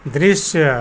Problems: constant background noise